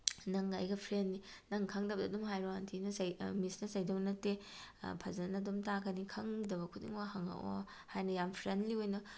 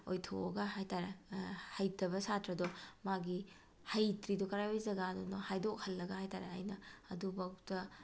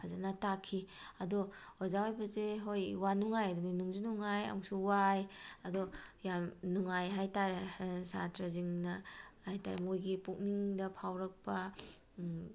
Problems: none marked